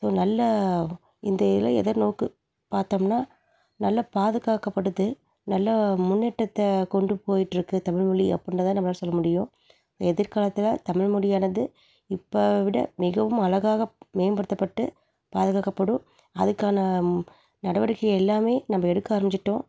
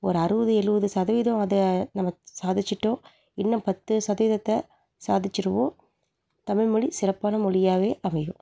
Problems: none marked